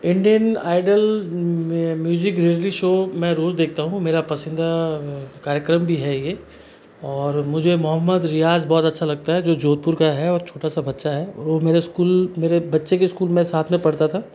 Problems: constant background noise